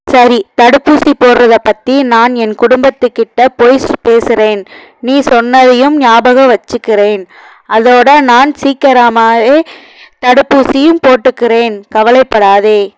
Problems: background sounds at intervals